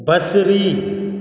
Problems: echo